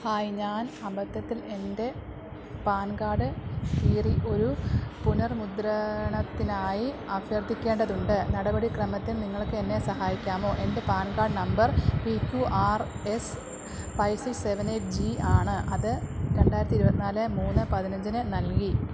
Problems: none marked